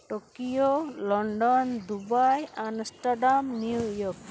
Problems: none marked